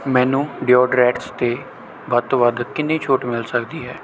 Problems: none marked